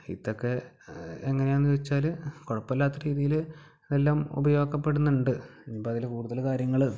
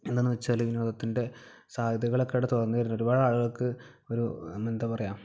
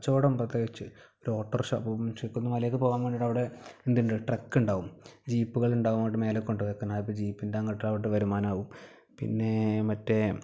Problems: background sounds at intervals